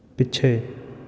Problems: none marked